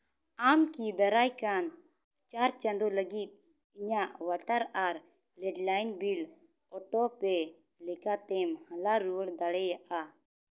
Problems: none marked